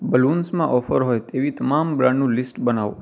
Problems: constant background noise